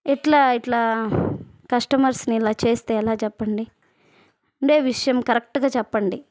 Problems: none marked